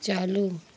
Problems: constant background noise